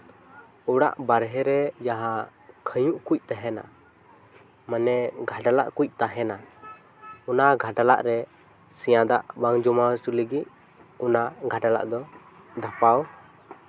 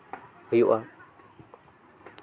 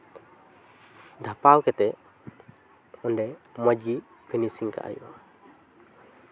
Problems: none marked